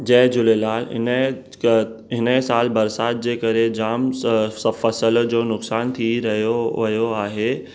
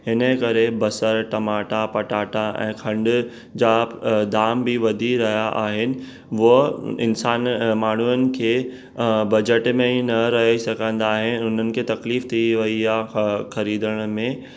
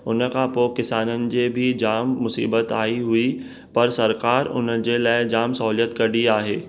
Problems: none marked